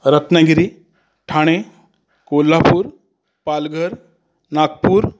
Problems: none marked